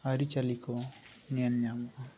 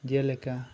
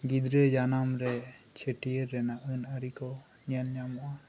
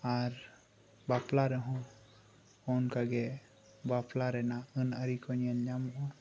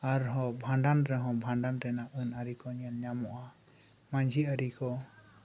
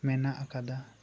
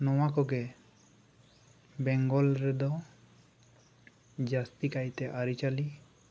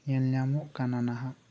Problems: background sounds at intervals